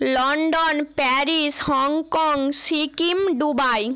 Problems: constant background noise